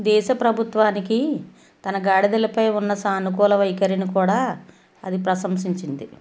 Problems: none marked